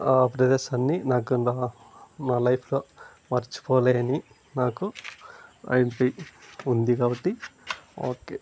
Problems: constant background noise